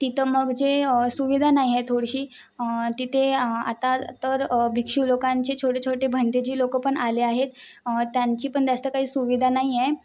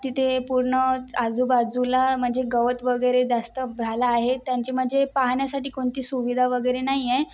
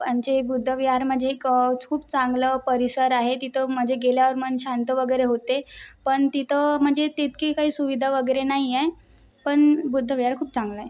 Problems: constant background noise